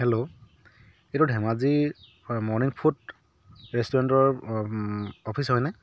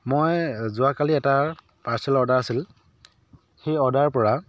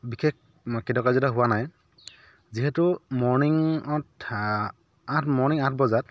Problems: none marked